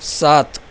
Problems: constant background noise